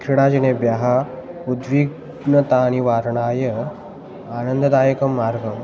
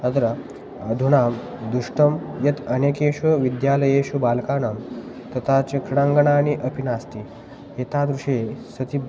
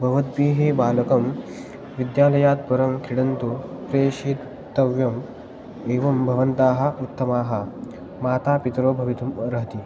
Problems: constant background noise